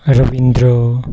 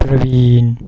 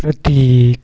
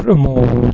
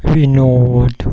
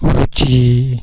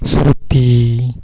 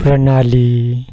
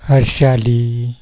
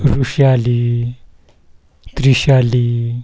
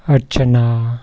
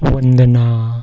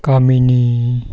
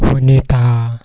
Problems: background sounds at intervals